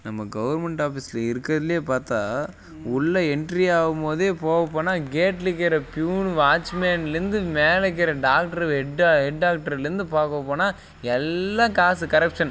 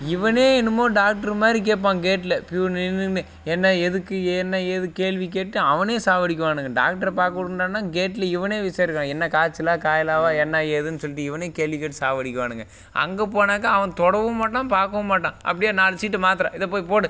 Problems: background sounds at intervals